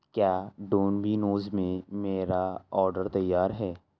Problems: none marked